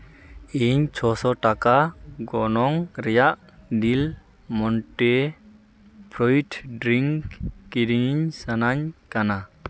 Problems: none marked